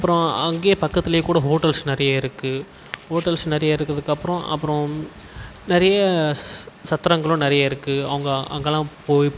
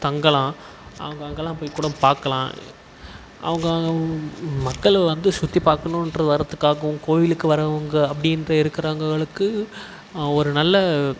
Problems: none marked